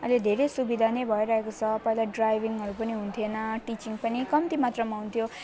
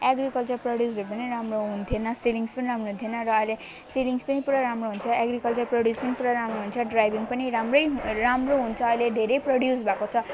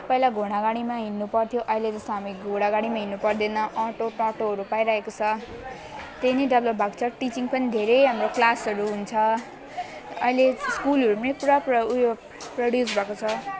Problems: continuous background conversations